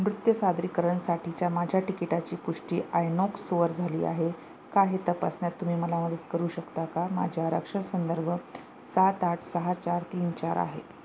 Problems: none marked